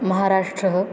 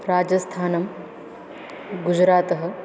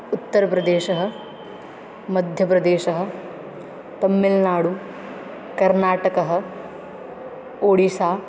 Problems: background sounds at intervals